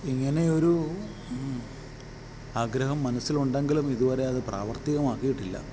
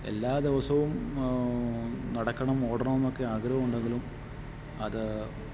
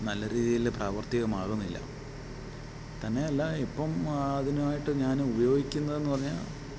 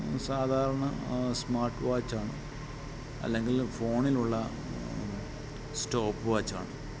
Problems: background sounds at intervals